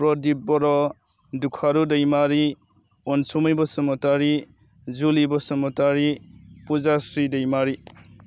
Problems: none marked